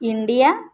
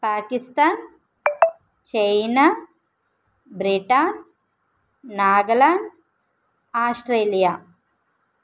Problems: background sounds at intervals